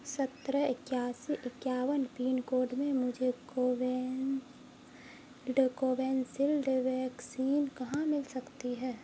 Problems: constant background noise